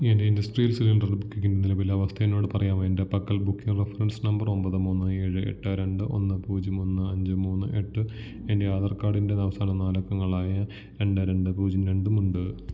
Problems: low volume